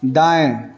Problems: none marked